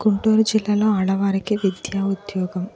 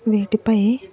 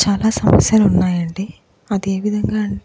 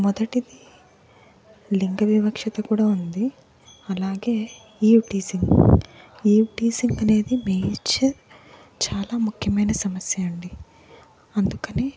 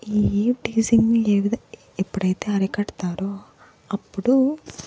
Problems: background sounds at intervals, background conversations at intervals